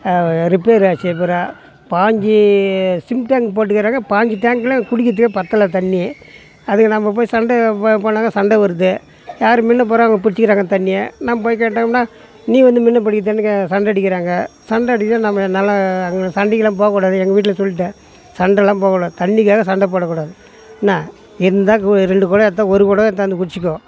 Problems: background sounds at intervals, background conversations at intervals